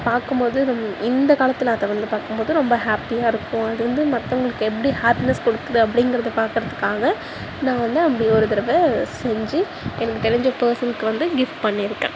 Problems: background sounds at intervals